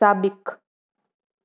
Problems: none marked